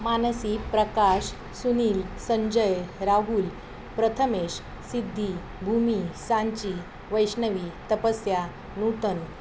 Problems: none marked